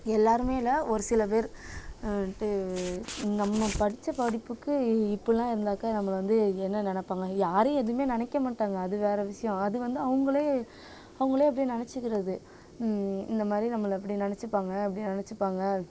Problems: constant background noise